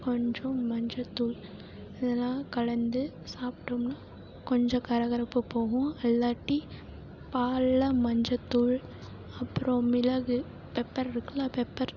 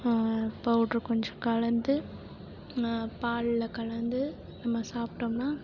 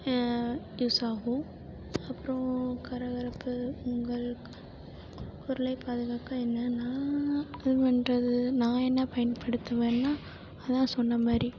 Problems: low volume